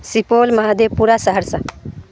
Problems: constant background noise